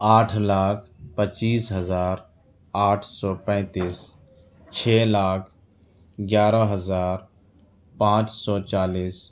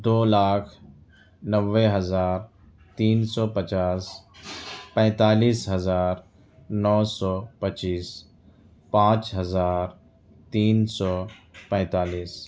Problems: none marked